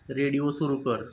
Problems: constant background noise